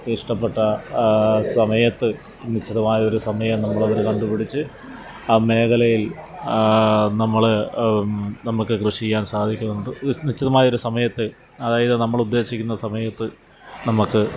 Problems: background sounds at intervals